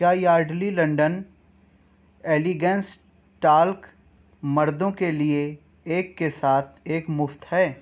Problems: background sounds at intervals